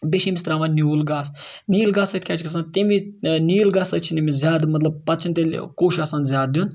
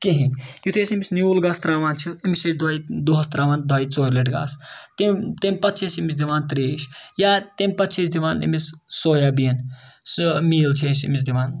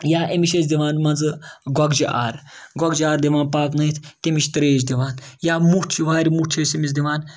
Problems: background sounds at intervals